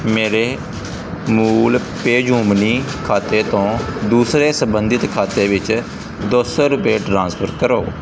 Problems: constant background noise